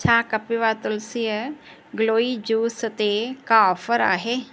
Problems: none marked